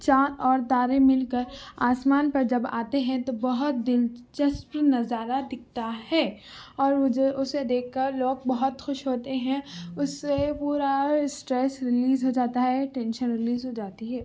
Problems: background sounds at intervals, background conversations at intervals